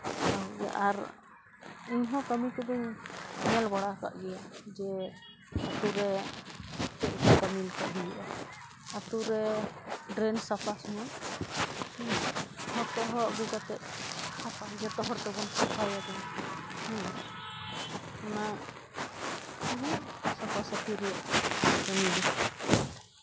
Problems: constant background noise